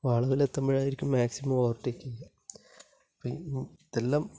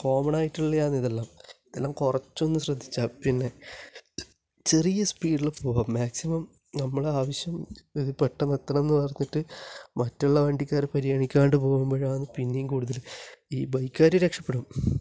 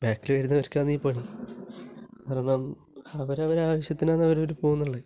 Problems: low volume